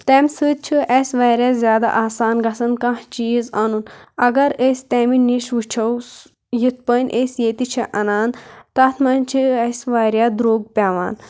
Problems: constant background noise